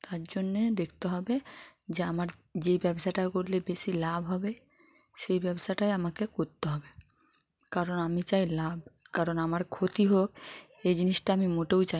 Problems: background conversations at intervals